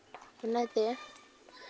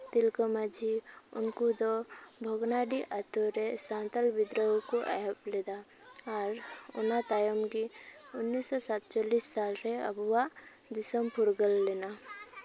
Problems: background conversations at intervals